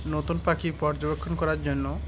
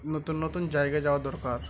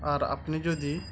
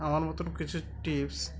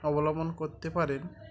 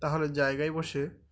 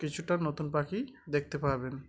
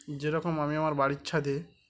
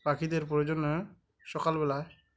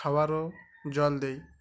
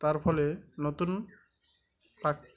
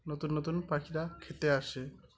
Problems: constant background noise, continuous background conversations